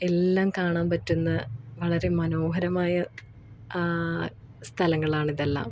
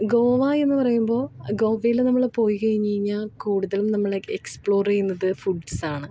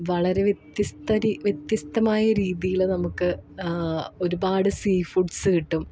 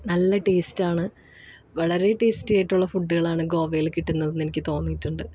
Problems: none marked